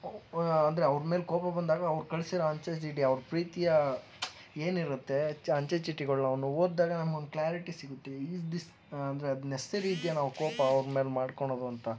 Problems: background sounds at intervals